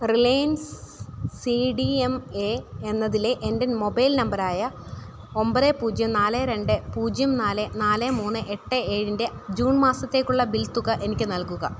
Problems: constant background noise